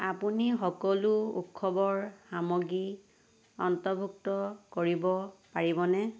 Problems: constant background noise